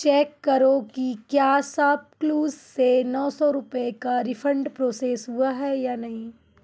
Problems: none marked